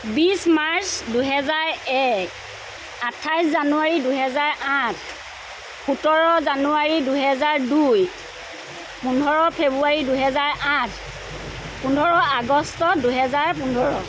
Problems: constant background noise